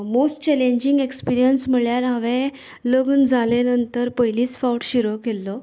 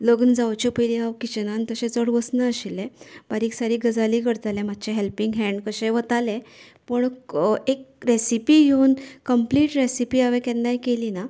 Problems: none marked